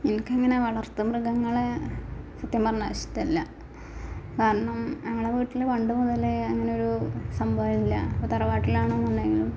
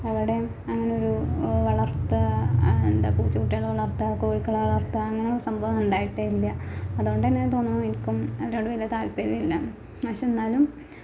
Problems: background sounds at intervals, low volume